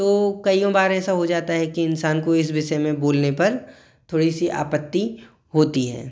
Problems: none marked